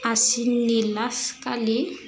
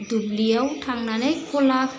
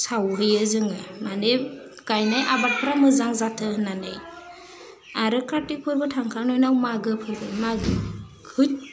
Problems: constant background noise